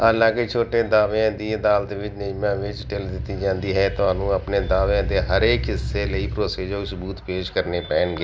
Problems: background sounds at intervals